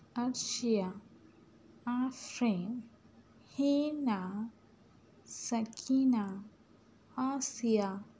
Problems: none marked